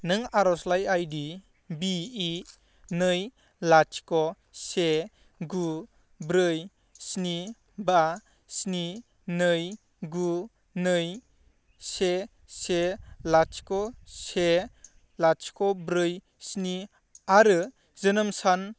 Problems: low volume